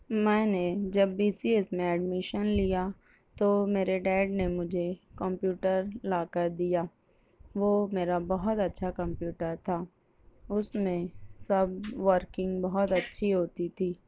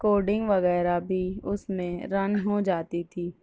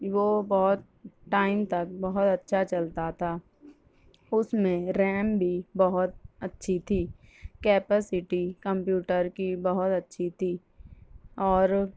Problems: background sounds at intervals